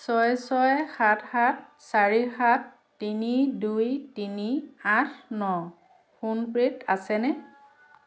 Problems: background sounds at intervals